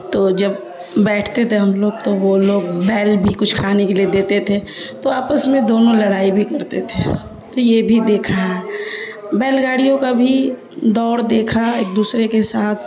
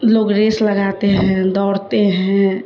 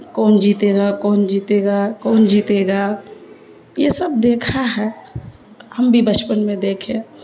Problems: constant background noise